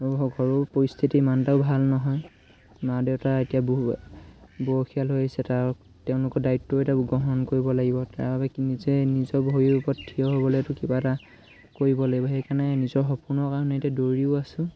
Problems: constant background noise, background conversations at intervals